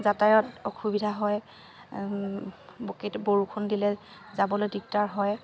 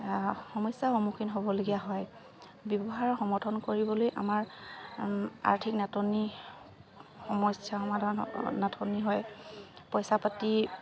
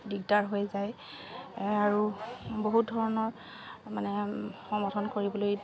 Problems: constant background noise